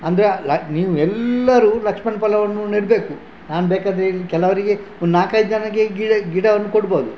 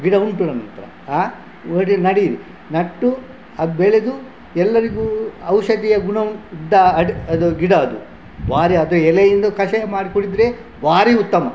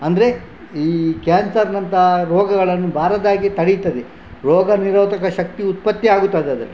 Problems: none marked